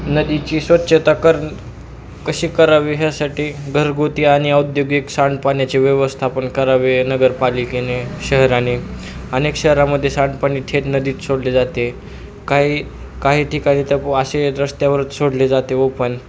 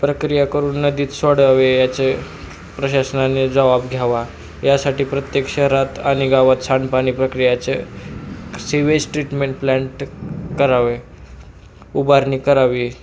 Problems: constant background noise